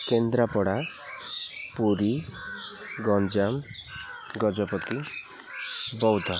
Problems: constant background noise, continuous background conversations